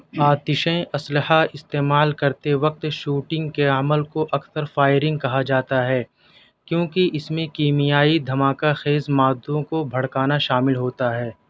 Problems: none marked